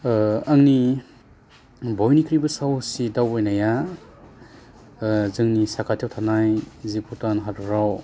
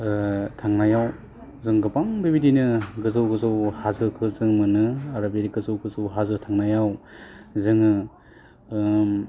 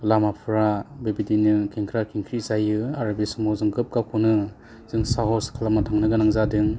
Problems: low volume